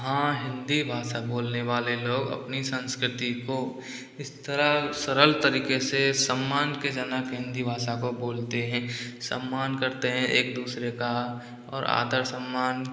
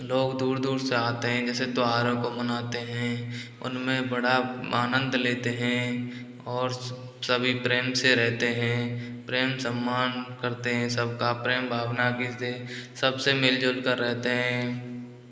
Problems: background sounds at intervals